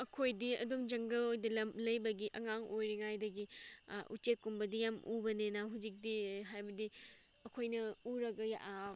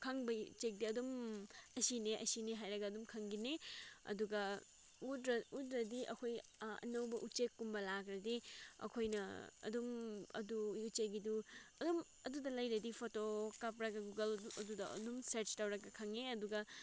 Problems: background sounds at intervals